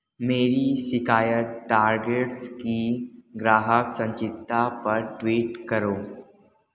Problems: background sounds at intervals